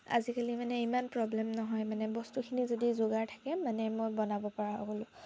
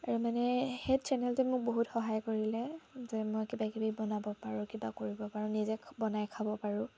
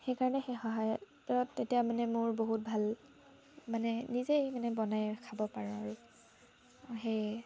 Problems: constant background noise, background conversations at intervals